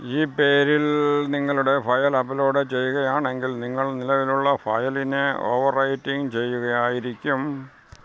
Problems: none marked